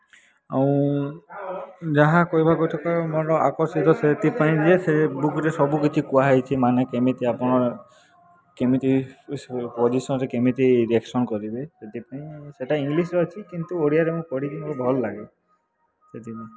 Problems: constant background noise